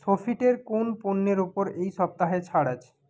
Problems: background conversations at intervals